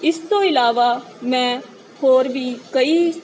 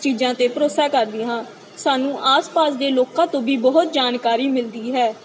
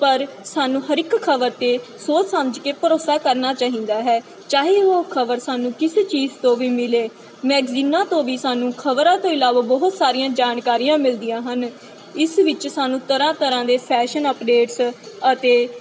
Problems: constant background noise